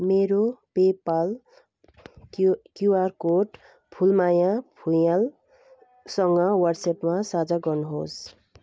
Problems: background sounds at intervals